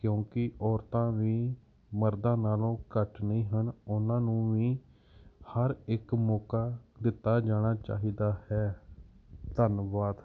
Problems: background sounds at intervals